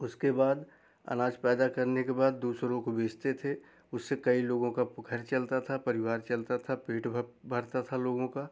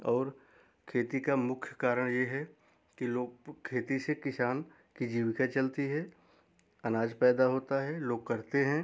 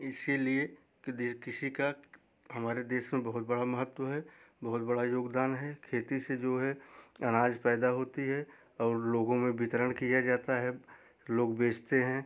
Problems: background sounds at intervals